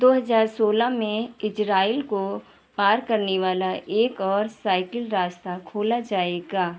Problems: none marked